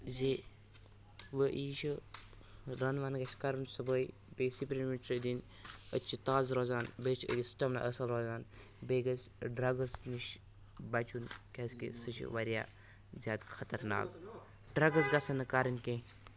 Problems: background sounds at intervals, background conversations at intervals